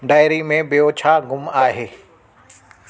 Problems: constant background noise, echo